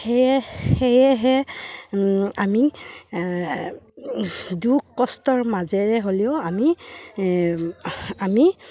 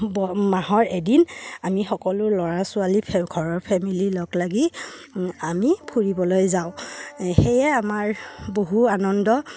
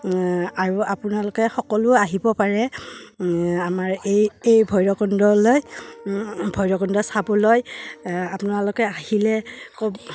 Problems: background sounds at intervals